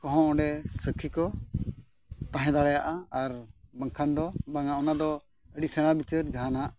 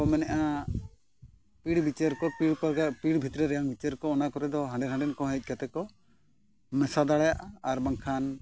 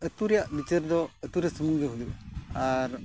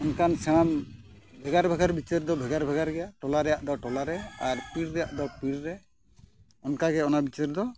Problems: background sounds at intervals